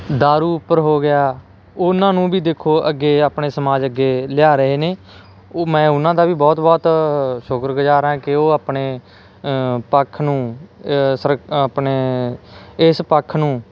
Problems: none marked